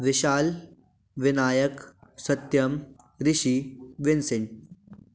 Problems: background sounds at intervals